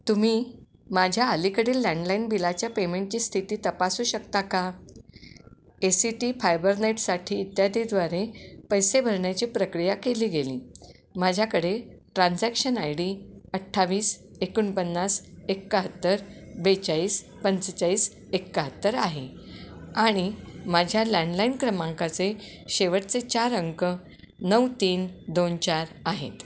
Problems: constant background noise